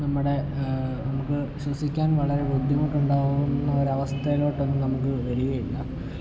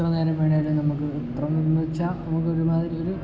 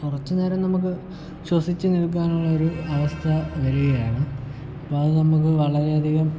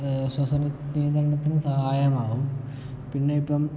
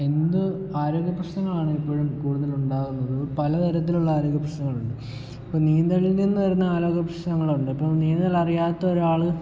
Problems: background sounds at intervals, echo, low volume